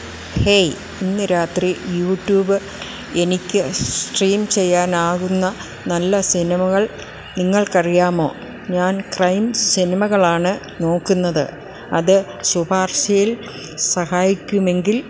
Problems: constant background noise